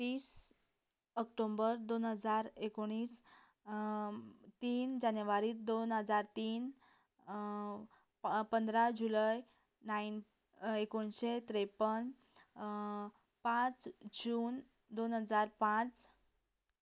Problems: none marked